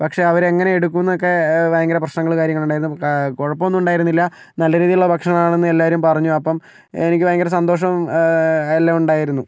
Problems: none marked